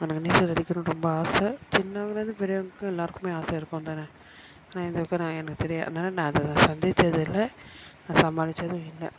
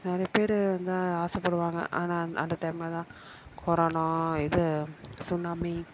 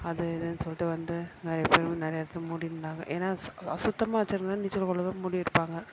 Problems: constant background noise, continuous background conversations